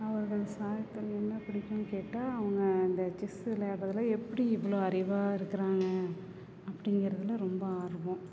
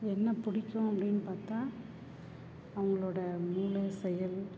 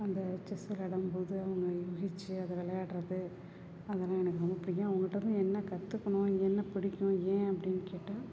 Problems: constant background noise, background conversations at intervals